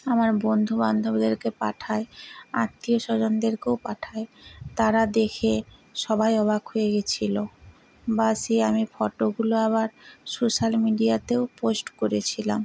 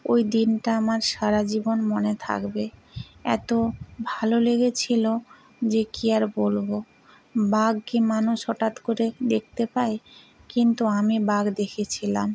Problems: background conversations at intervals